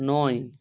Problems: none marked